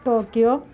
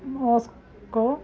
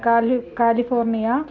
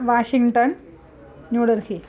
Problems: continuous background conversations